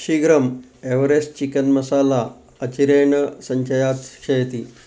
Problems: background sounds at intervals